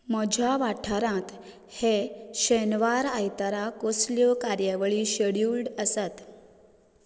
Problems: none marked